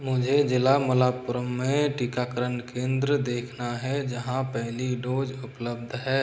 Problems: constant background noise